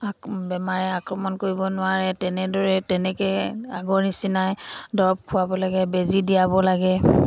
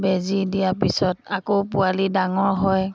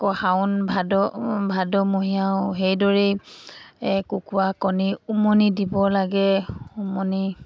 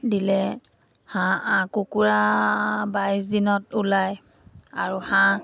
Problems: background sounds at intervals